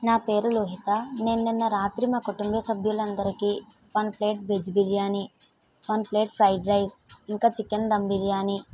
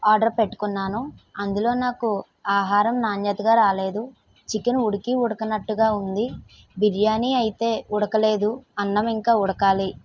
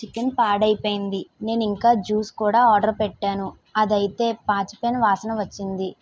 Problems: none marked